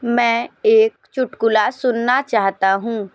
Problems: background sounds at intervals